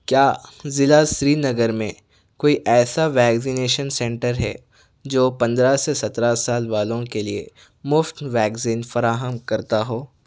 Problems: none marked